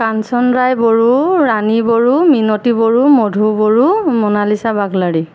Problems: constant background noise